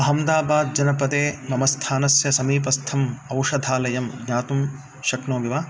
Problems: constant background noise